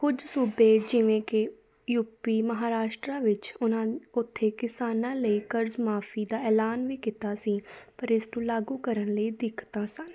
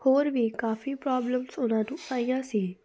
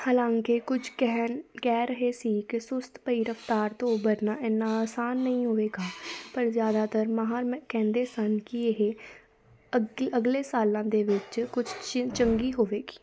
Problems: background sounds at intervals, continuous background conversations